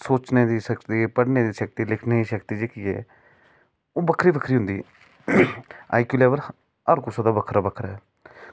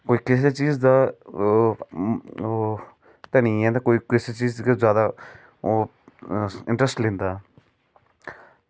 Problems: none marked